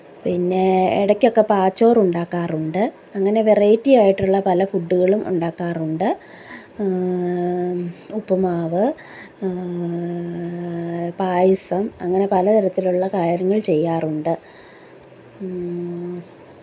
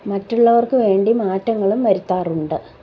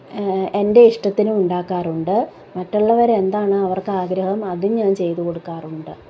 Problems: background conversations at intervals